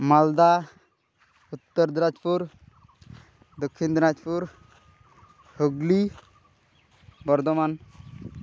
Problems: none marked